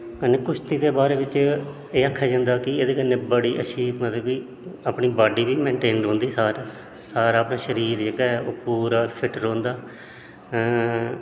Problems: constant background noise, echo